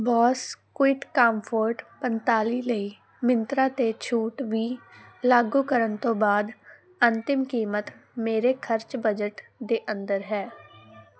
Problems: none marked